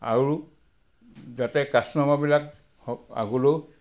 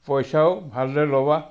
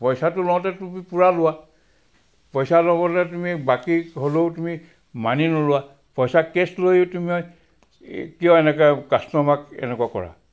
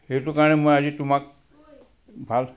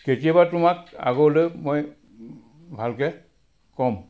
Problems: background sounds at intervals